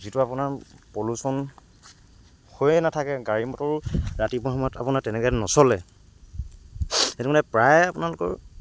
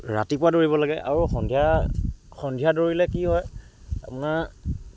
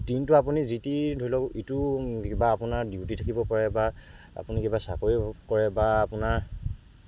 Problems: background sounds at intervals, background conversations at intervals